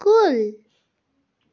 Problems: background sounds at intervals